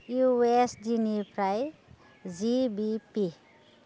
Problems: constant background noise